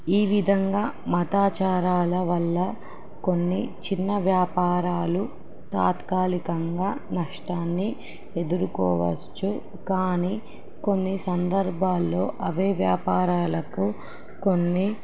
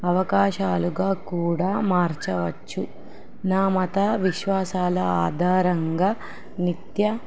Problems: background sounds at intervals